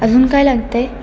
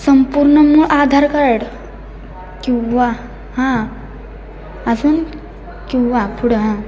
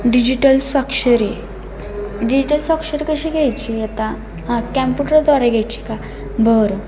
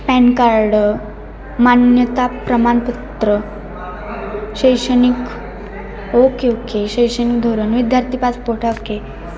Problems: none marked